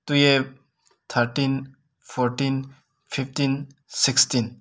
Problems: none marked